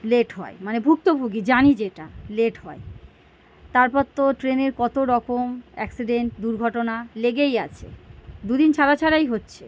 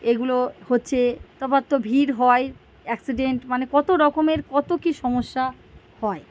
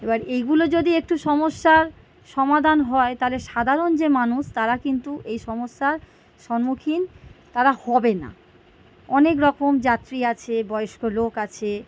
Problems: background sounds at intervals